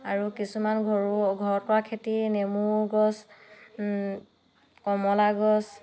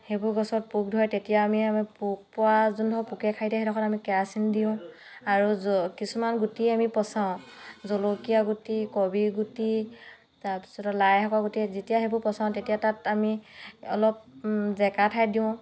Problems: background conversations at intervals